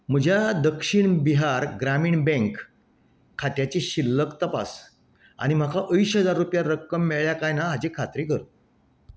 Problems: background sounds at intervals, background conversations at intervals